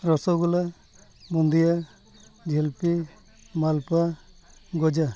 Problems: none marked